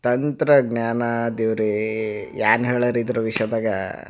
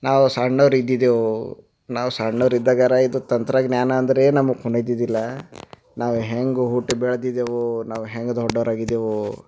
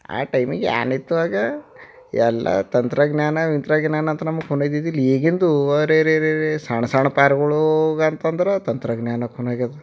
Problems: none marked